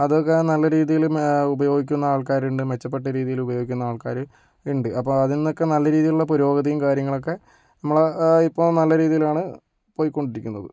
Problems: none marked